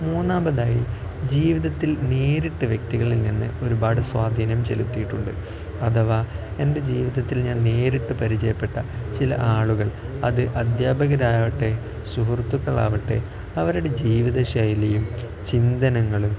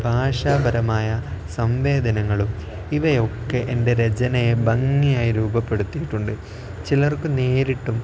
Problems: none marked